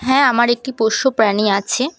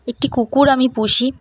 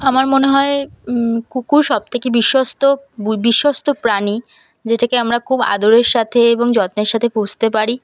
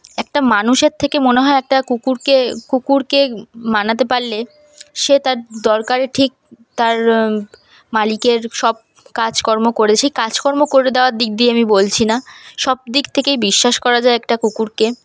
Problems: none marked